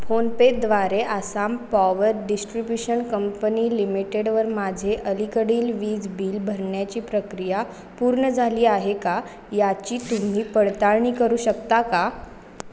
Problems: constant background noise